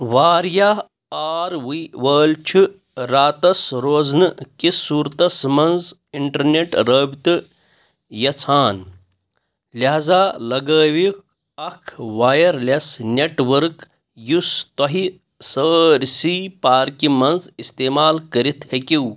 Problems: none marked